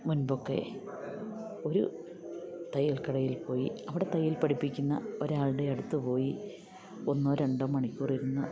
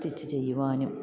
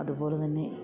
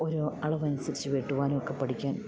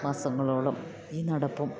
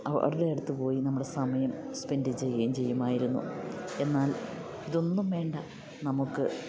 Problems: none marked